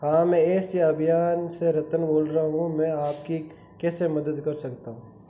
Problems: constant background noise